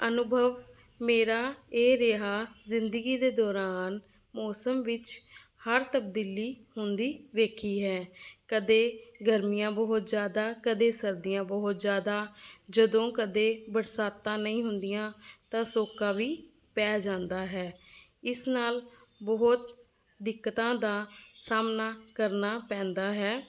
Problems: none marked